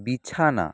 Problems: constant background noise